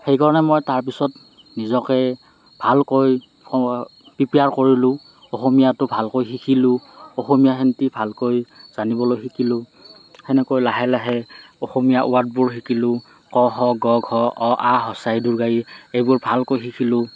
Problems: none marked